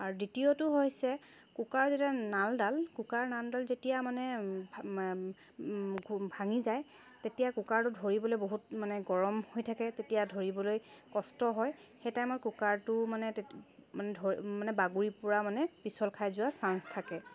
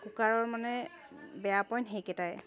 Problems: none marked